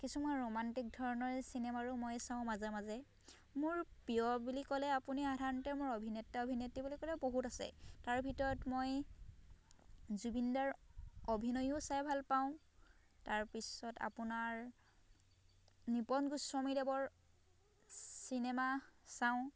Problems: background sounds at intervals